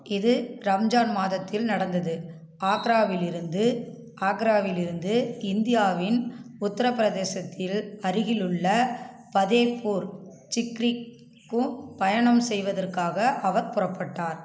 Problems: constant background noise